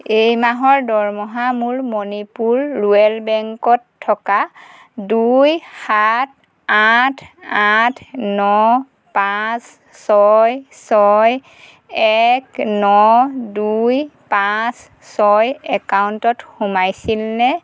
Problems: none marked